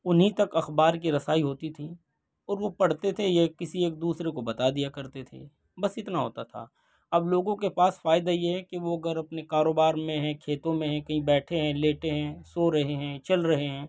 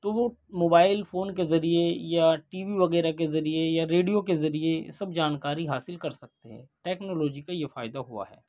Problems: none marked